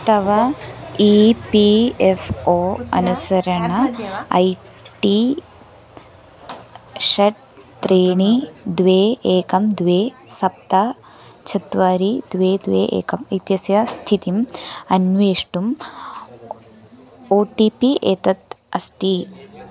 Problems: background sounds at intervals